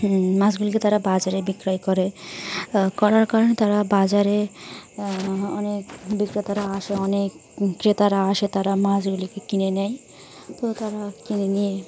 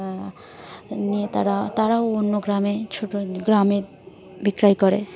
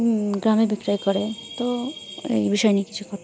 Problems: constant background noise, continuous background conversations